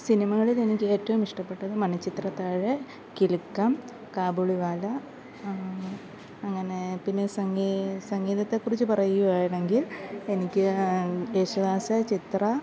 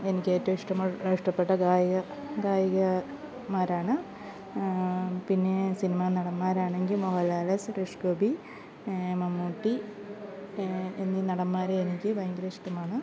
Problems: background sounds at intervals